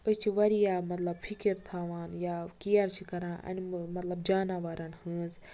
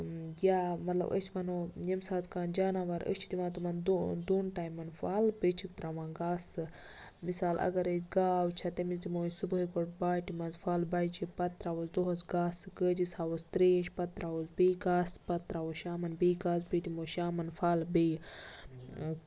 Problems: none marked